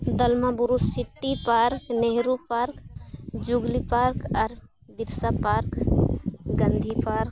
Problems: constant background noise